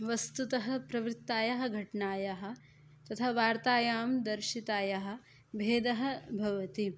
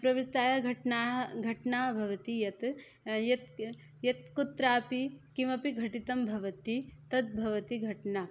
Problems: none marked